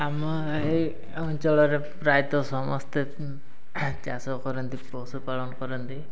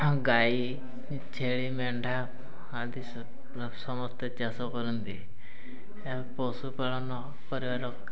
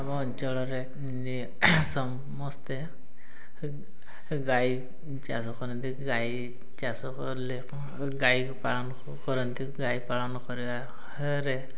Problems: none marked